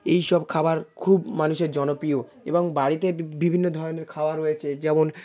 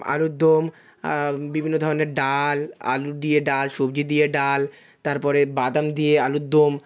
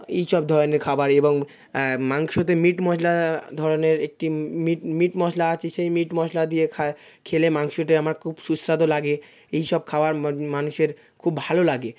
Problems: continuous background conversations